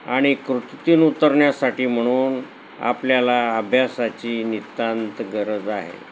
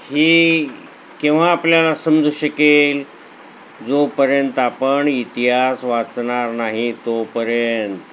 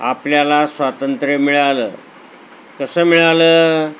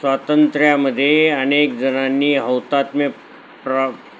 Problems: none marked